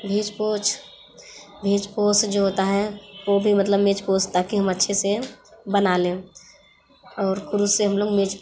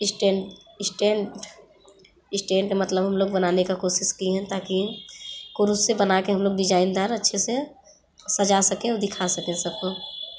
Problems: constant background noise